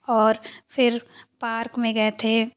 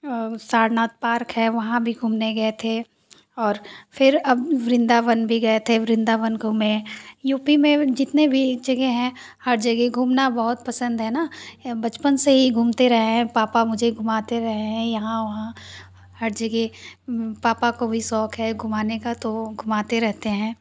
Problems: none marked